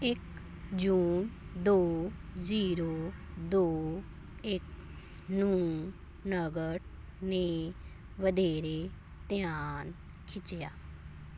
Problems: constant background noise